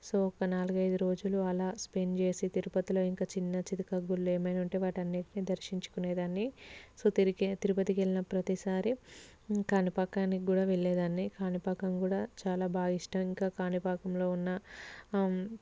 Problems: none marked